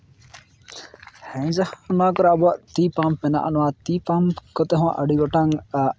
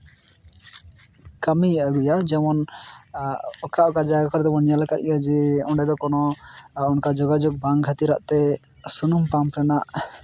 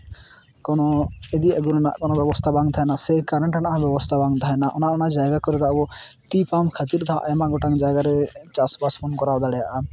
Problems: background sounds at intervals